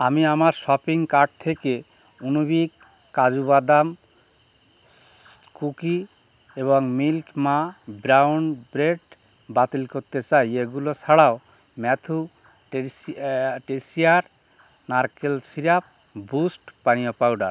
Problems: none marked